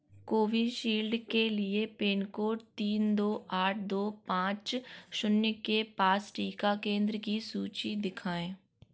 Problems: none marked